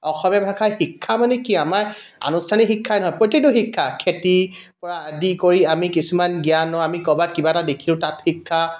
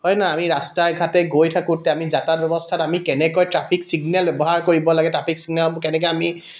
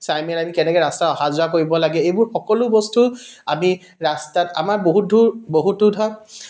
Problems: background sounds at intervals